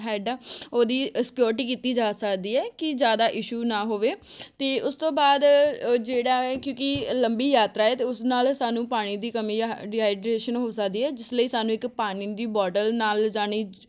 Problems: background sounds at intervals